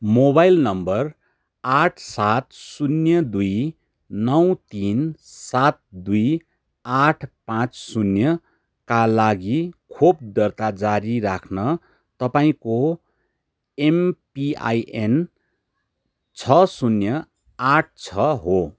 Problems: background sounds at intervals